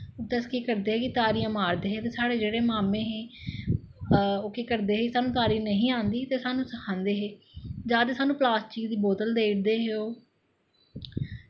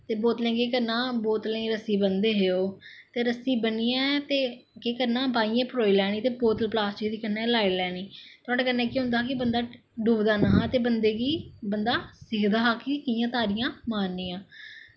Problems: echo